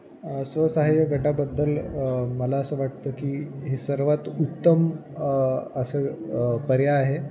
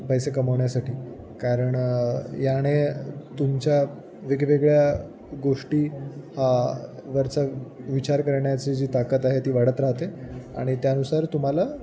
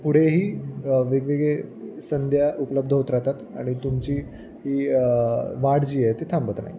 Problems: constant background noise, background conversations at intervals